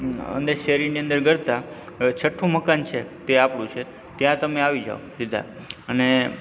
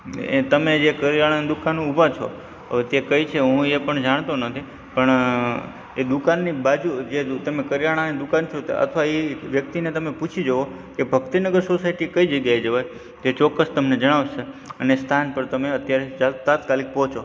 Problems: background sounds at intervals